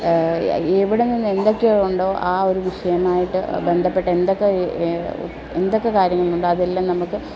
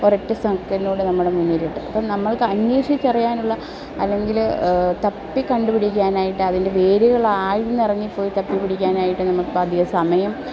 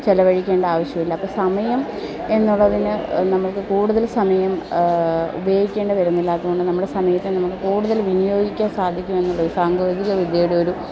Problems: none marked